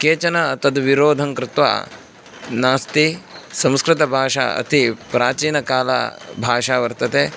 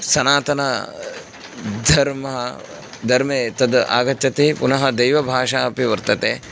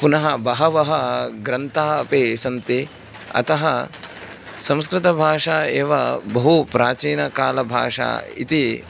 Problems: constant background noise